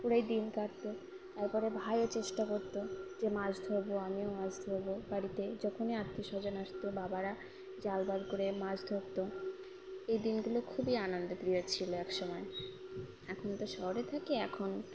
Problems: none marked